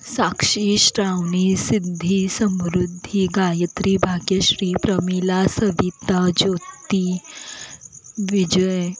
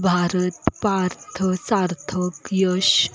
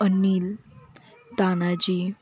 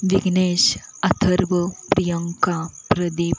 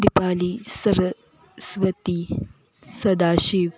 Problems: constant background noise, background conversations at intervals